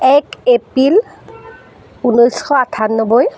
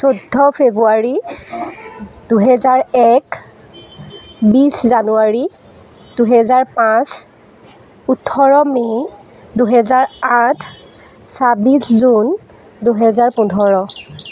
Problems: none marked